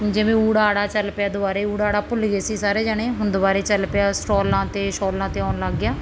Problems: constant background noise